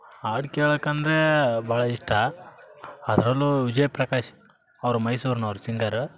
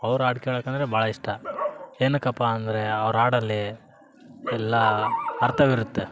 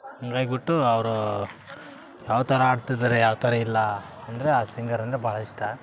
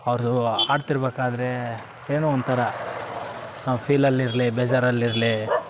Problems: background sounds at intervals